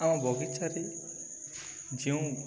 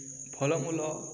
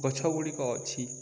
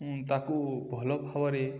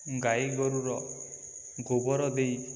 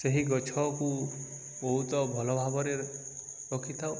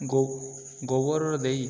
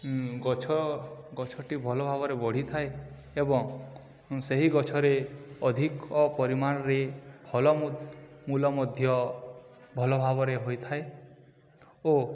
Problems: none marked